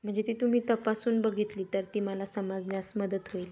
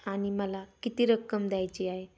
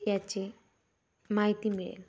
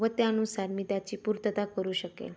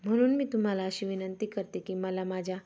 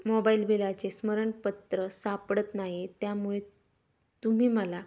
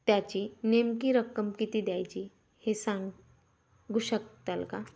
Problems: constant background noise